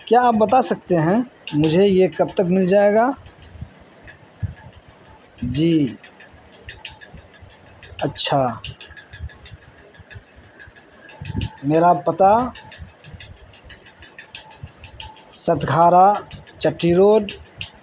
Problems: constant background noise